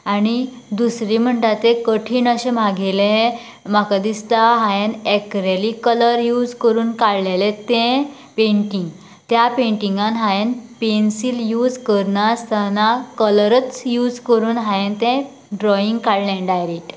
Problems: none marked